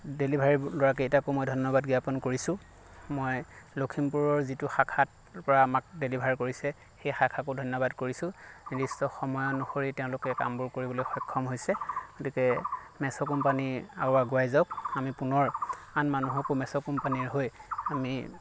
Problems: none marked